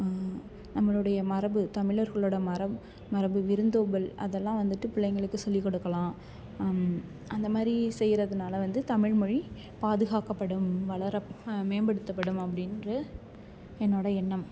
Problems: background sounds at intervals